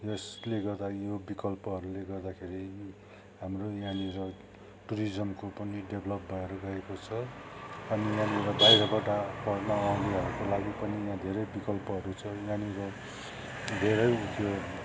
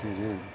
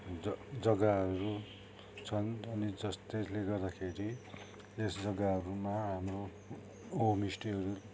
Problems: constant background noise